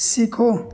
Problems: constant background noise